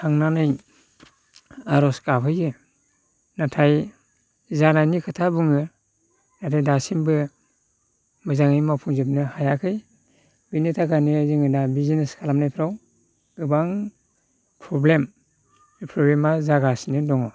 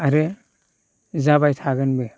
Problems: constant background noise